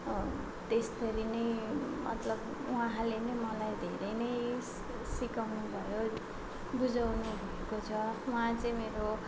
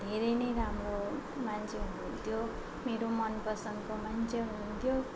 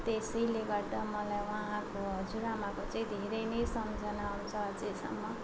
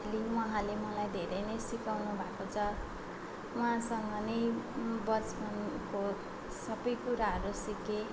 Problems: background sounds at intervals